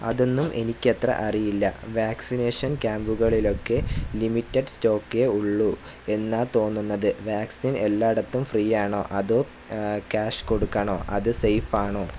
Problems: constant background noise